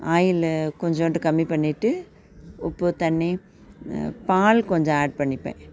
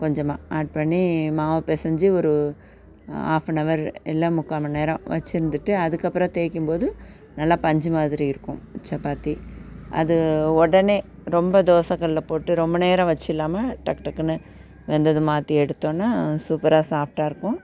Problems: constant background noise